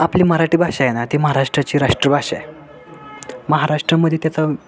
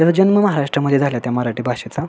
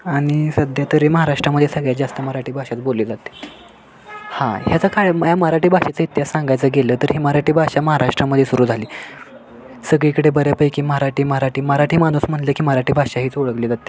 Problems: constant background noise